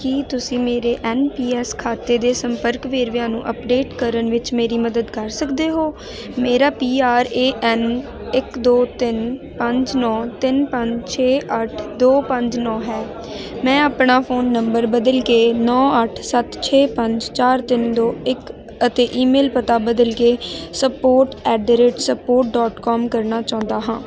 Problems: constant background noise